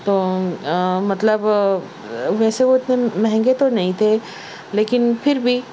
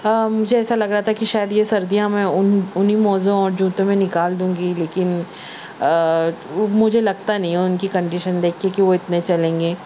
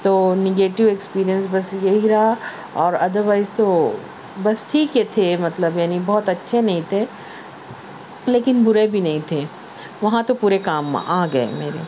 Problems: background sounds at intervals